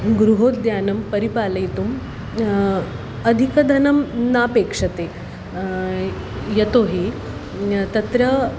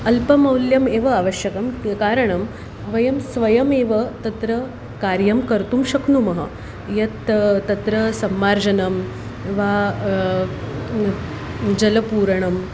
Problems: constant background noise